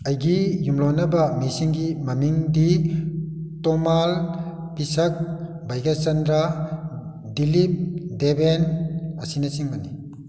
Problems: none marked